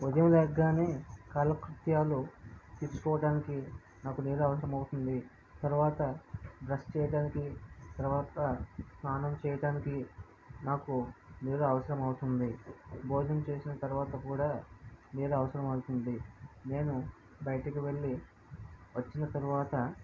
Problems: low volume